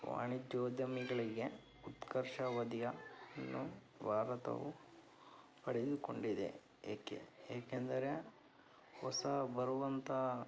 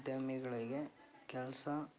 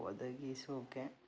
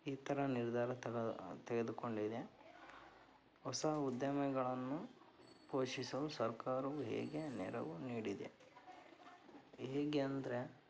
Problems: background sounds at intervals